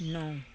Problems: background conversations at intervals